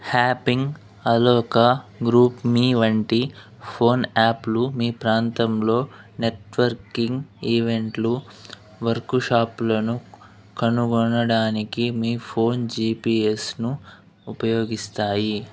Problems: background sounds at intervals